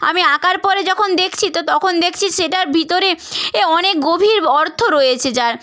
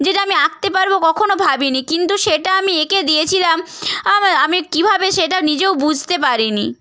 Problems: none marked